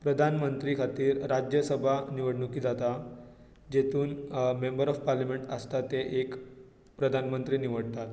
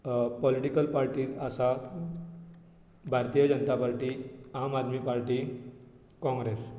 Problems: constant background noise